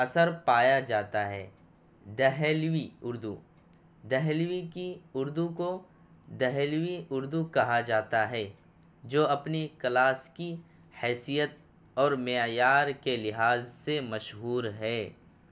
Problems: none marked